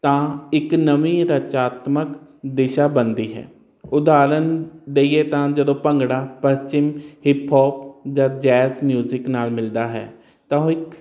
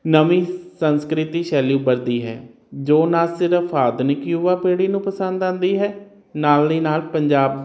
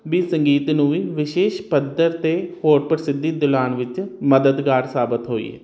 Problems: none marked